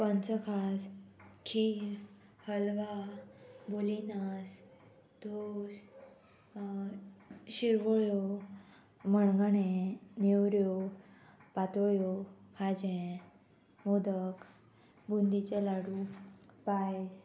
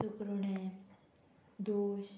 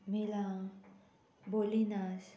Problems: constant background noise